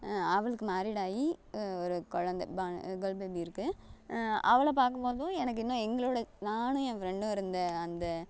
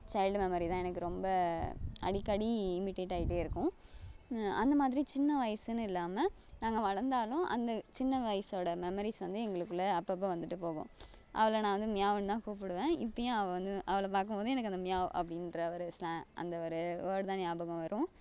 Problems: background sounds at intervals